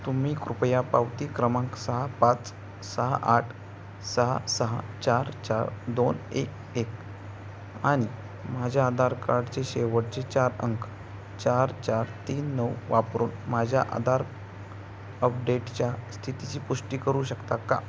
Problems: none marked